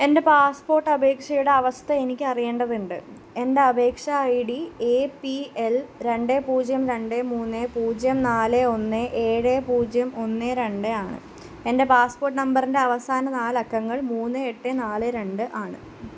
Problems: constant background noise